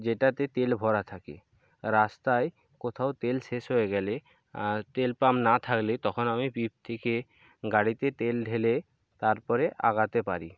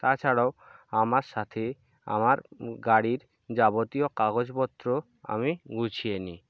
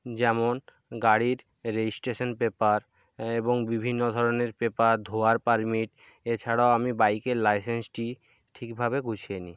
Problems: none marked